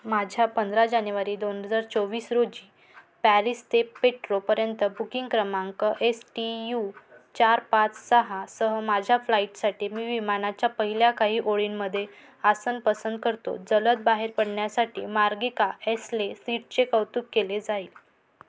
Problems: background sounds at intervals